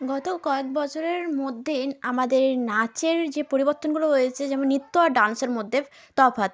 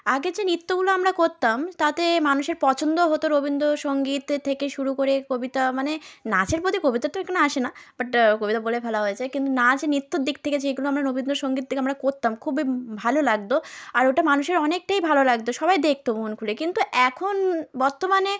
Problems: background sounds at intervals